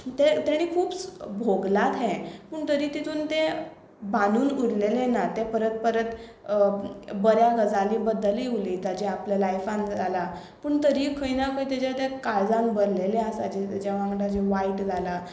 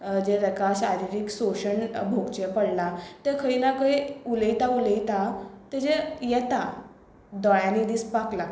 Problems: none marked